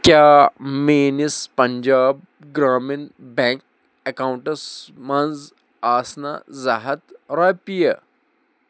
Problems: none marked